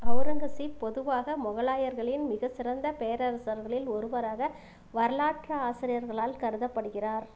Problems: constant background noise